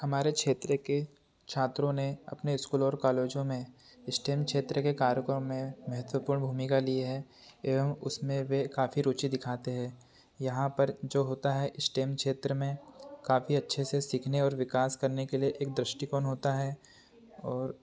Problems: constant background noise